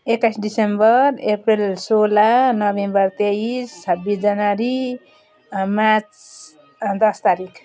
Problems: none marked